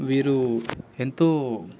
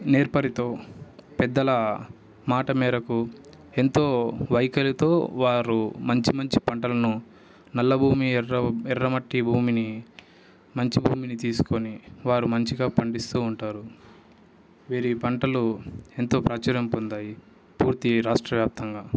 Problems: background sounds at intervals